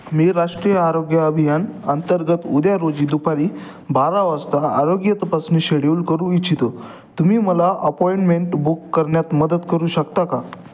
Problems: constant background noise, continuous background conversations